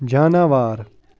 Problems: background sounds at intervals